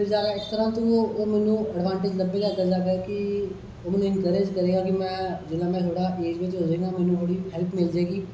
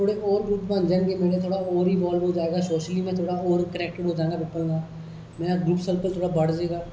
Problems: echo